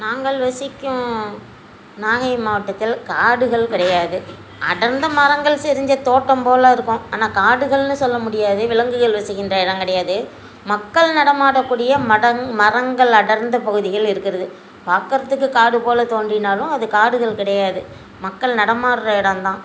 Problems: constant background noise